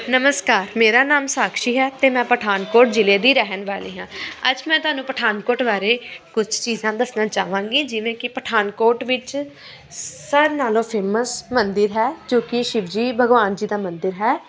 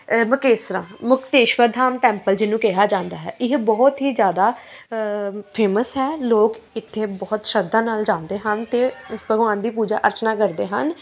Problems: continuous background conversations